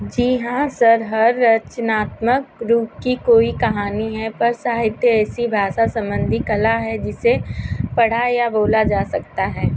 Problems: constant background noise